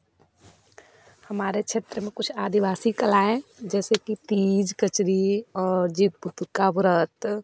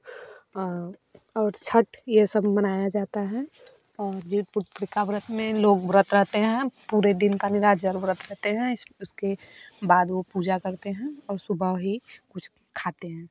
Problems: background sounds at intervals